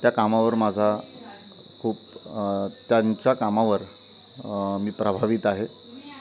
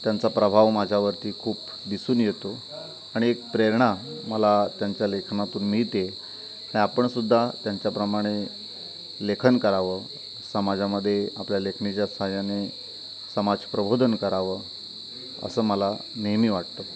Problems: constant background noise, continuous background conversations